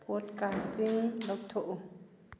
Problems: low volume